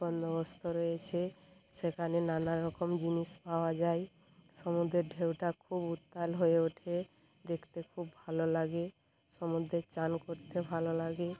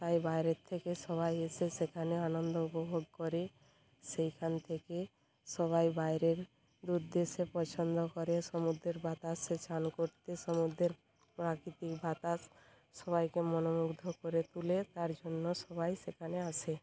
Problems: background conversations at intervals